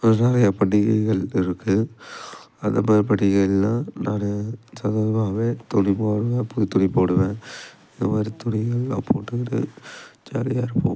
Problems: background sounds at intervals